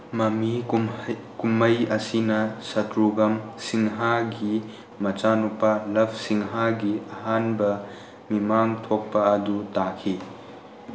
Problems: constant background noise